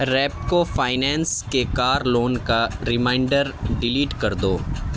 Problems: constant background noise